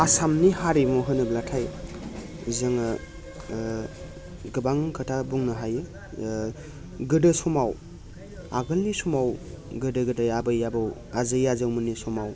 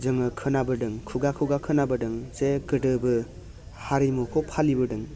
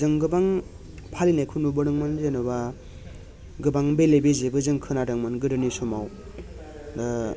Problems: none marked